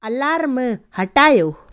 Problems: none marked